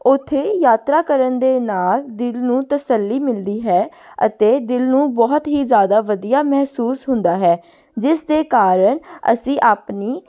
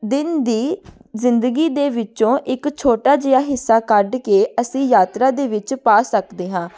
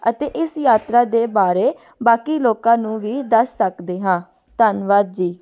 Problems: background conversations at intervals